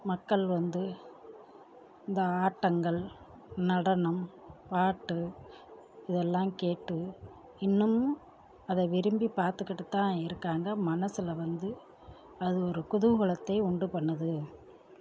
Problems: low volume